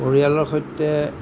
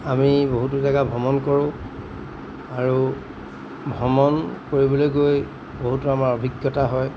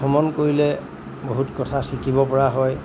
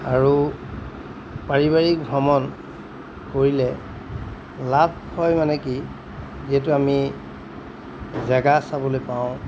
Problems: background sounds at intervals